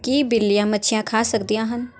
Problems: background sounds at intervals